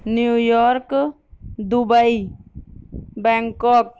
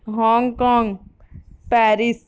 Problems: none marked